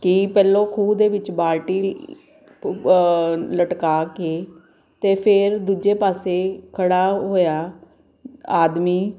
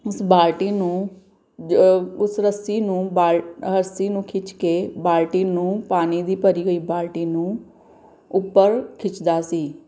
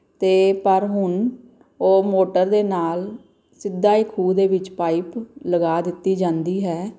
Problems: none marked